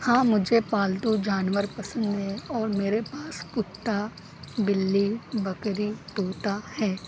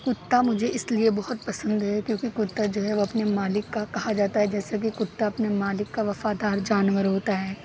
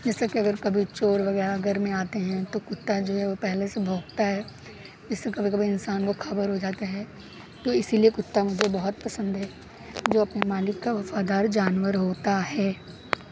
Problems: none marked